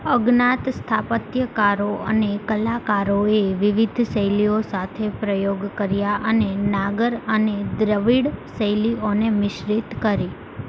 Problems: constant background noise